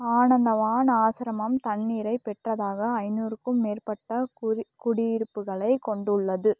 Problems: background sounds at intervals, low volume